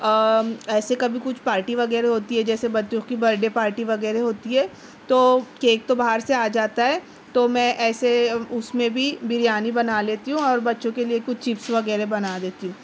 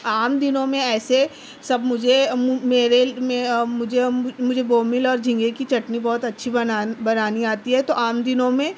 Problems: constant background noise